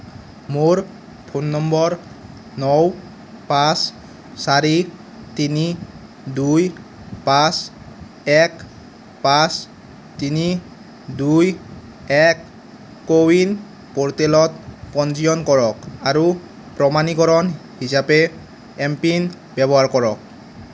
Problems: constant background noise